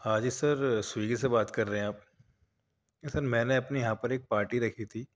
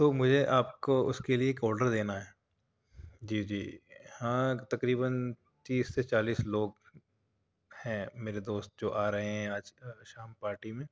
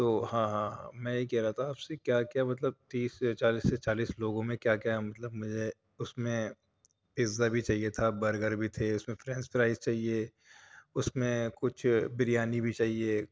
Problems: none marked